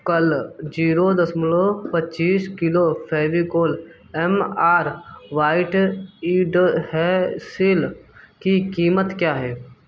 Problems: background sounds at intervals